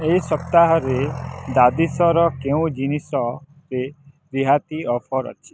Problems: background sounds at intervals